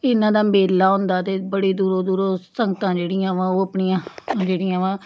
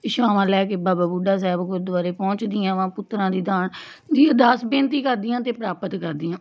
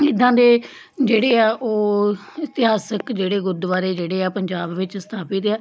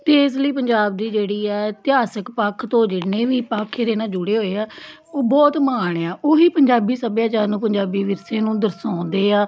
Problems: none marked